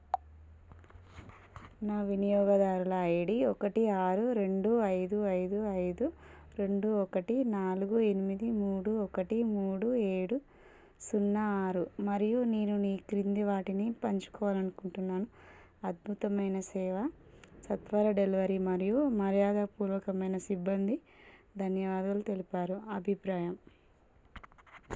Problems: low volume